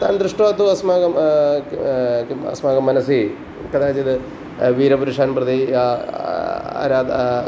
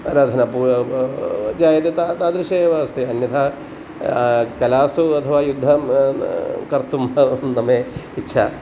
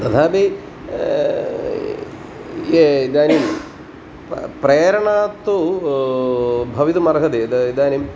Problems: constant background noise